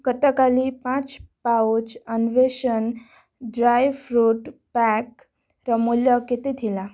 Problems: none marked